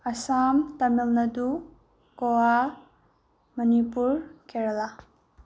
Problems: none marked